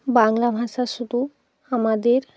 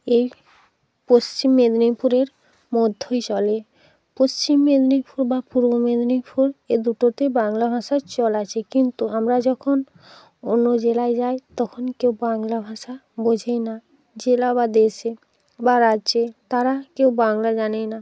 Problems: constant background noise